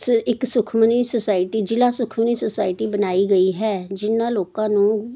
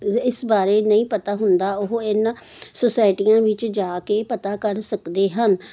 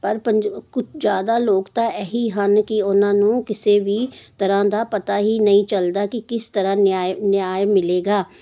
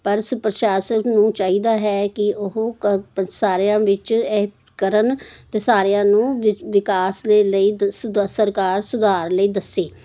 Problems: none marked